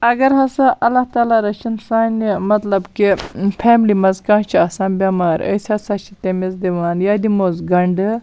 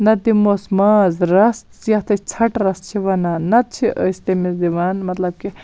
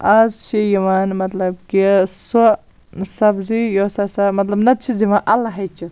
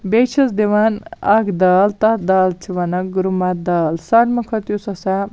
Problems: none marked